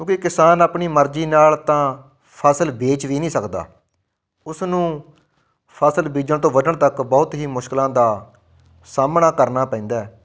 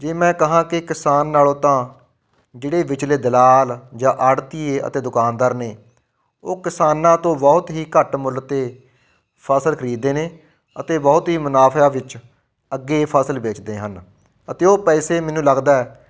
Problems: none marked